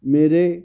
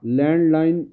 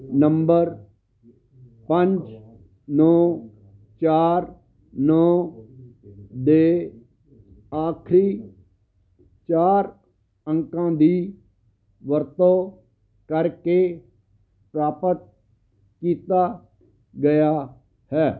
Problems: background sounds at intervals